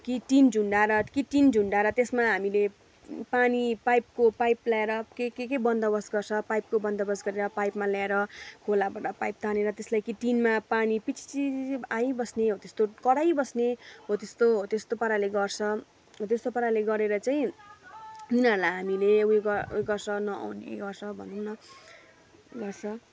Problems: constant background noise